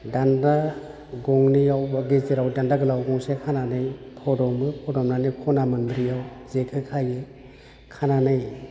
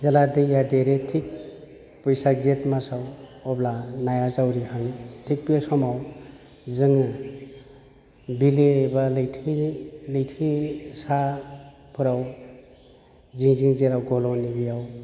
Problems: none marked